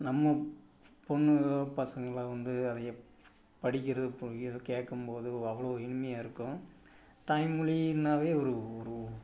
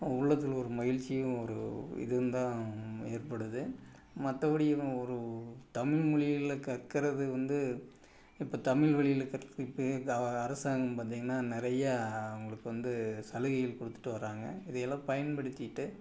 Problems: background sounds at intervals